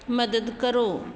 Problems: constant background noise